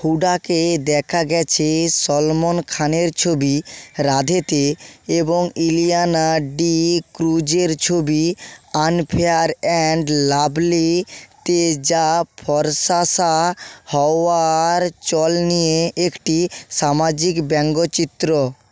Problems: constant background noise